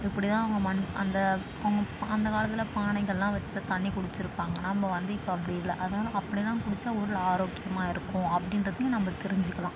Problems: constant background noise